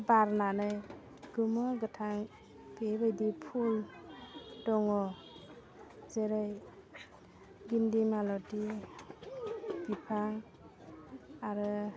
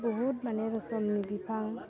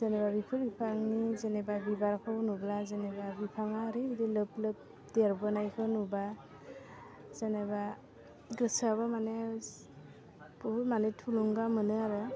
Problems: low volume